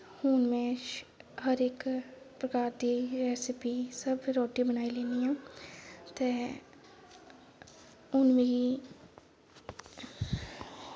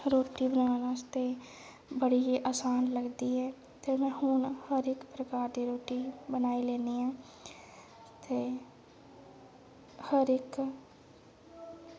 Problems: none marked